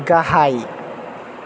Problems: none marked